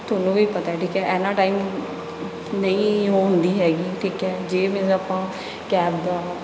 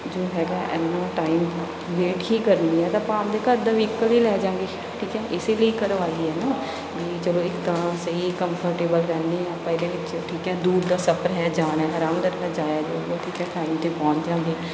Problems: none marked